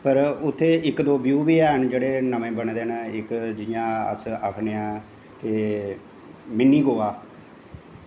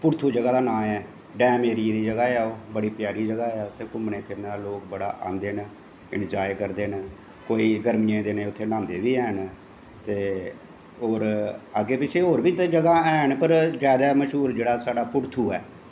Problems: constant background noise, echo, low volume